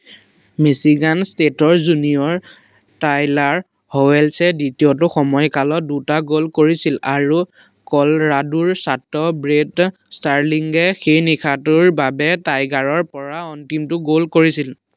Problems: constant background noise